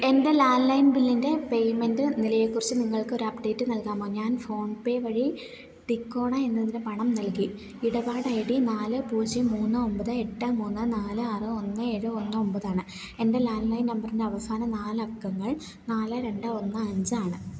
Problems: none marked